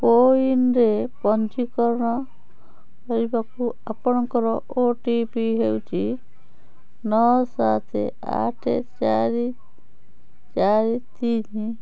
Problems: background sounds at intervals, background conversations at intervals